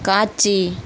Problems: constant background noise